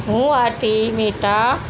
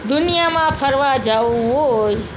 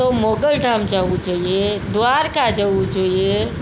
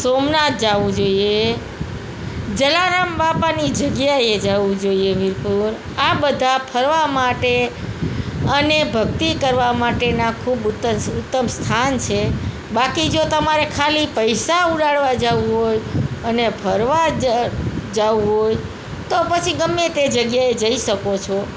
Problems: constant background noise